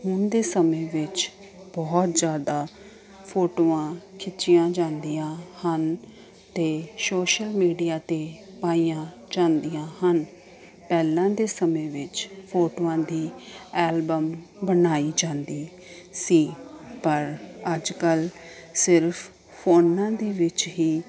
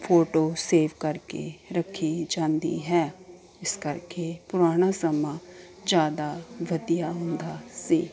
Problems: constant background noise